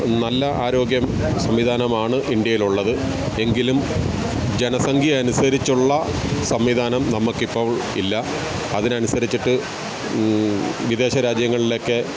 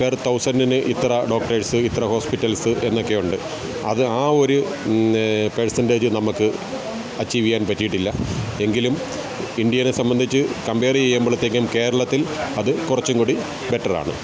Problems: constant background noise